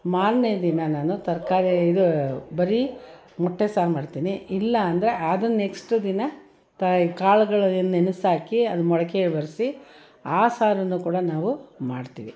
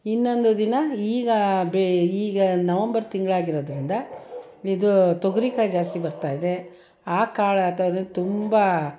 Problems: background sounds at intervals, background conversations at intervals